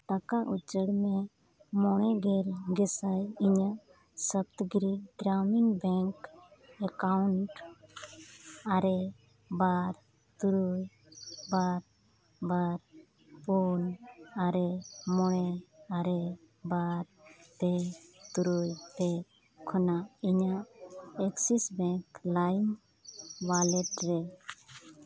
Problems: constant background noise